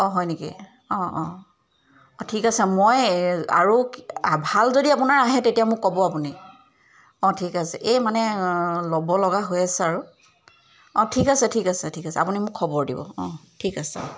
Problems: background sounds at intervals